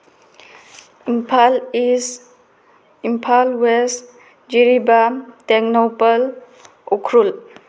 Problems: background sounds at intervals